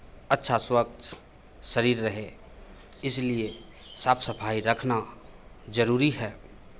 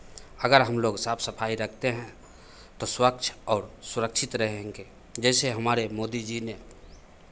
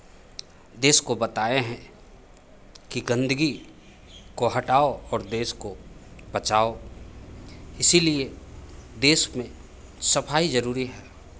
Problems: none marked